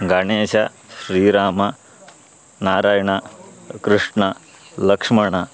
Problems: constant background noise